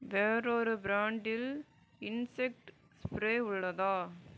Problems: low volume